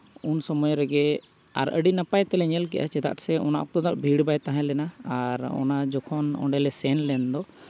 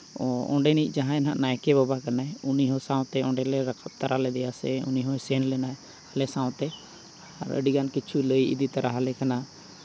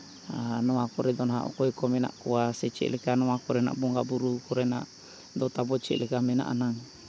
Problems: none marked